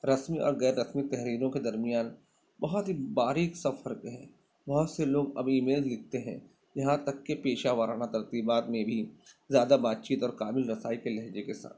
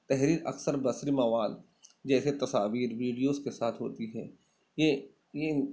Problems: background sounds at intervals